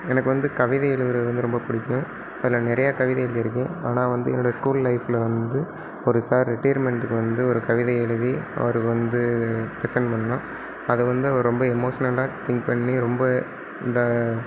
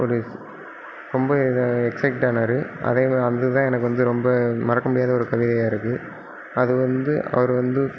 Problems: background sounds at intervals